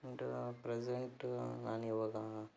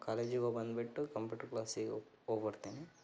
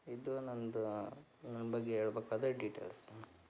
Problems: none marked